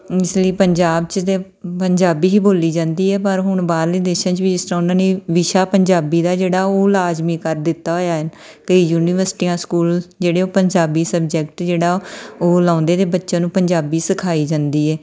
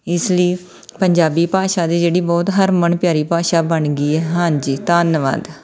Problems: background sounds at intervals